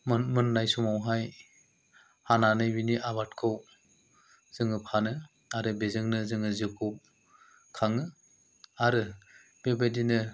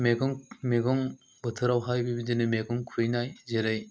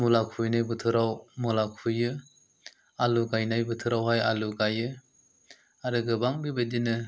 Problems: low volume